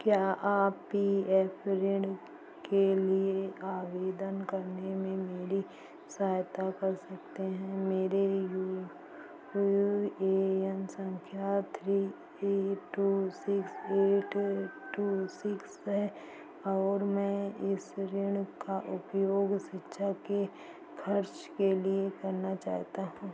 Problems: constant background noise